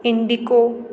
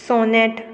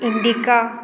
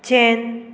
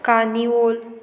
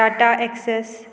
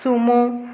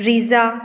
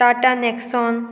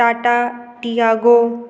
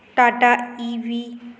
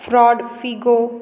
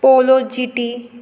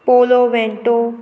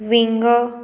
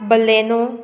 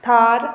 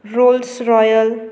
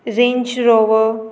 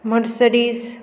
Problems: constant background noise